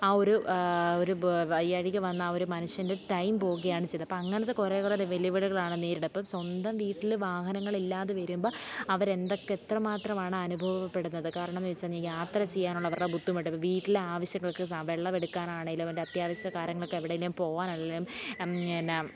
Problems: background sounds at intervals, low volume